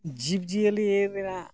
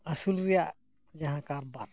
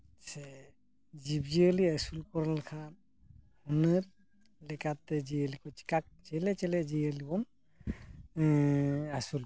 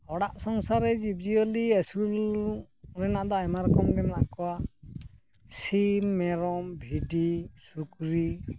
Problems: background sounds at intervals